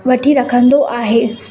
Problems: constant background noise, echo